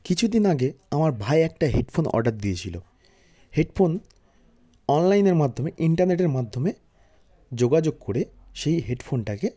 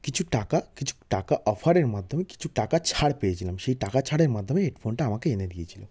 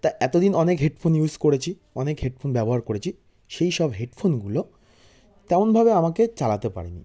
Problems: background sounds at intervals